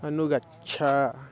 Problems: background sounds at intervals, background conversations at intervals